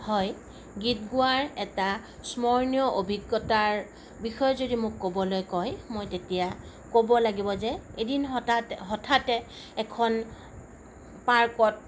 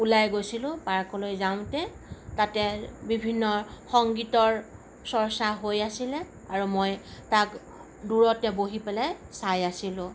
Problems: none marked